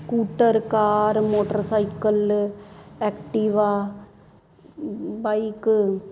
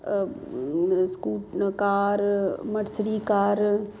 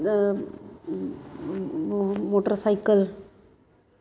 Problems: constant background noise